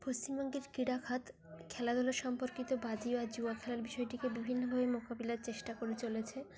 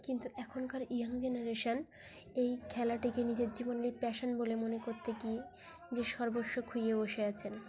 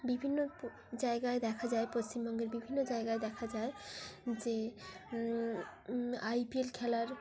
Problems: constant background noise, continuous background conversations